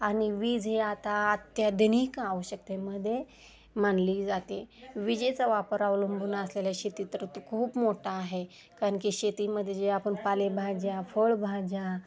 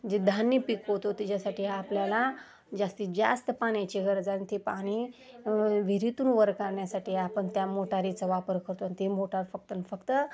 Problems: constant background noise, background conversations at intervals, low volume